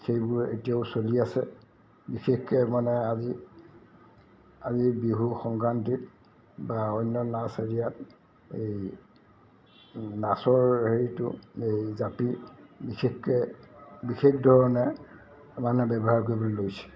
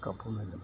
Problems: constant background noise